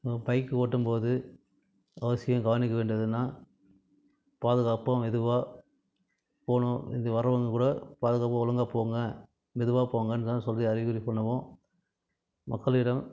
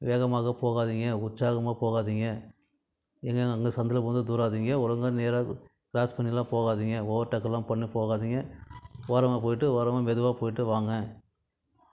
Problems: background sounds at intervals